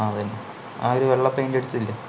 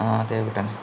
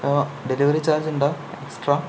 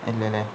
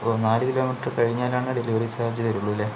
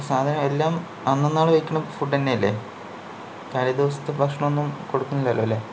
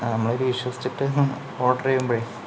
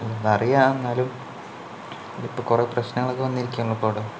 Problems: none marked